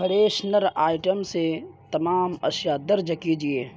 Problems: background sounds at intervals, low volume